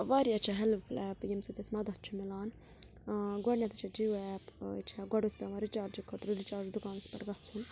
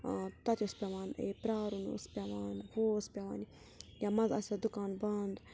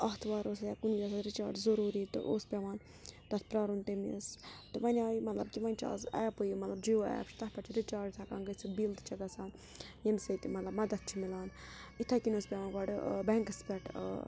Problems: background sounds at intervals, background conversations at intervals